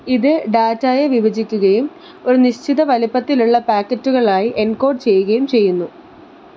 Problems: constant background noise